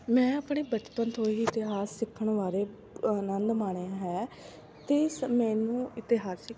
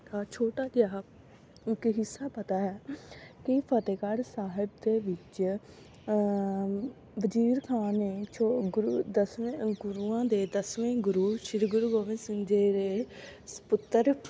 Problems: constant background noise, continuous background conversations